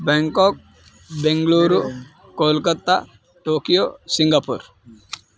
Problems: constant background noise